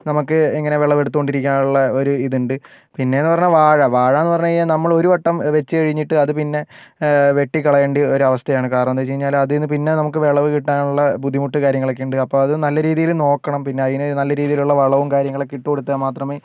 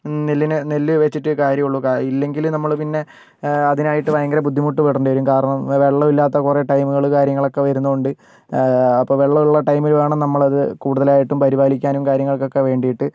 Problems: none marked